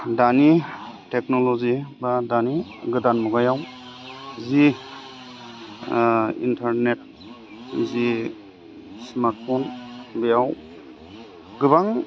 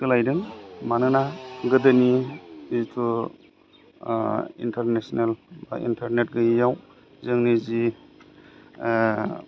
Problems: low volume